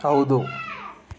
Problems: background conversations at intervals